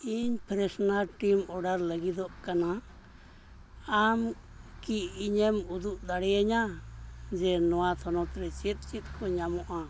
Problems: constant background noise